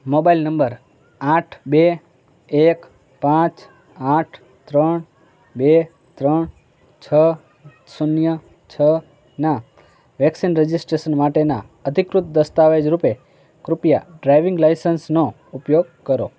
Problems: constant background noise, continuous background conversations